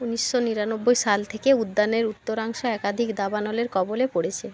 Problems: constant background noise